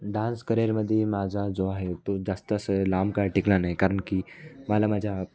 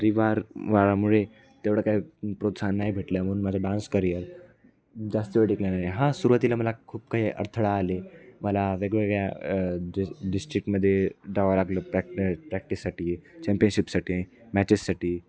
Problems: background sounds at intervals, continuous background conversations